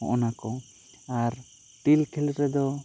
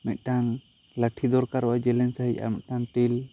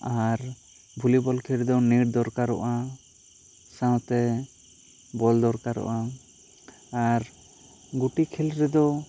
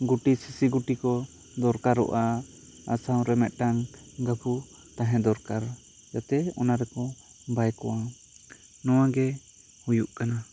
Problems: constant background noise